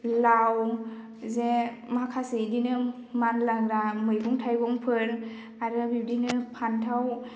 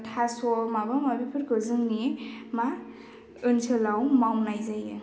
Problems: none marked